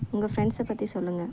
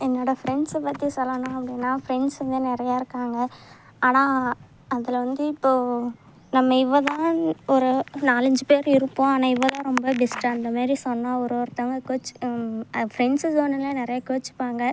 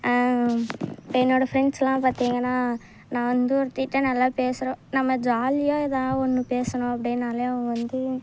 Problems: none marked